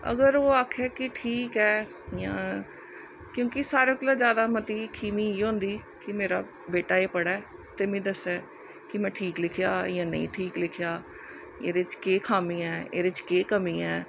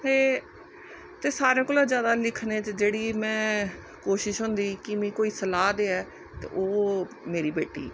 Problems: none marked